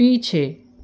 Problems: constant background noise